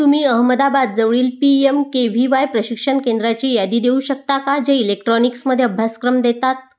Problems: background sounds at intervals, background conversations at intervals